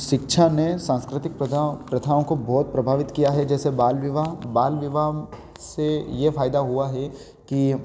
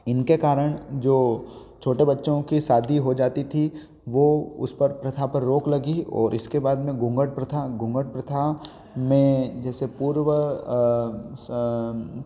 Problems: background sounds at intervals